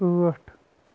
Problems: constant background noise